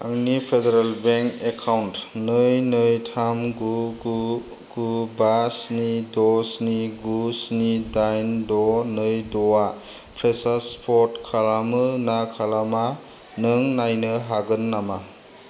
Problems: low volume